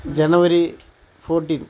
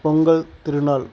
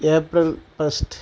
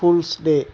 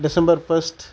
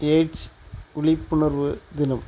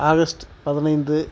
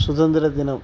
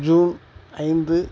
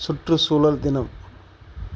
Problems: background sounds at intervals, background conversations at intervals